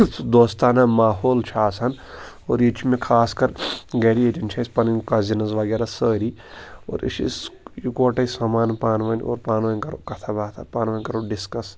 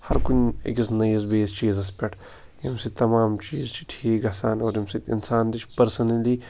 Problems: constant background noise